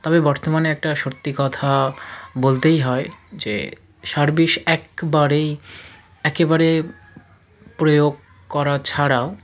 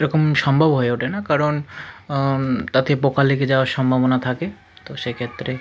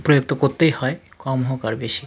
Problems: constant background noise, continuous background conversations